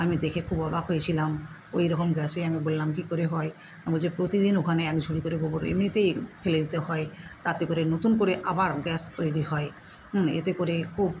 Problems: none marked